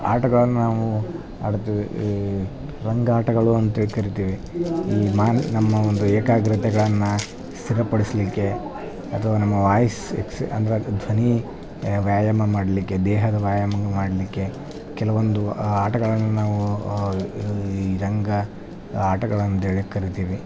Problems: none marked